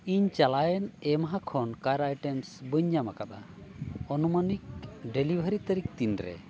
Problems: none marked